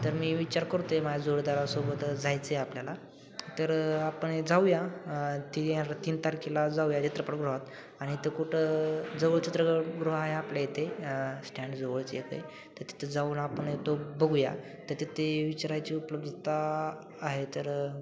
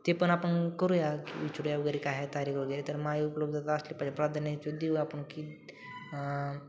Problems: constant background noise